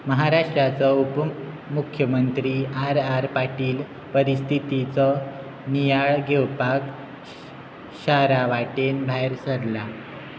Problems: constant background noise